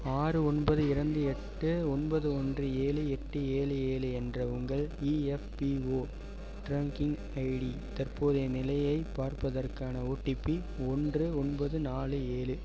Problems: background sounds at intervals